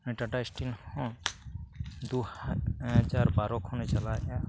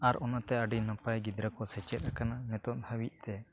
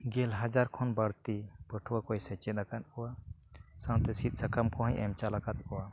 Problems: background sounds at intervals